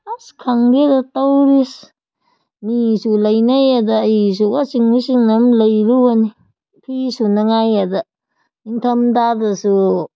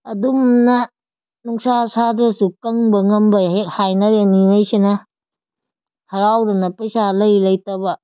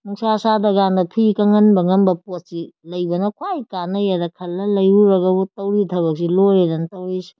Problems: none marked